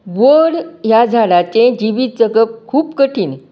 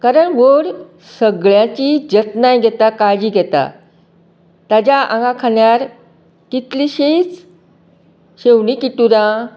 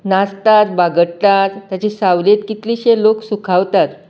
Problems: none marked